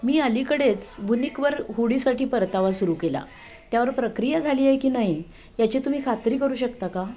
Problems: constant background noise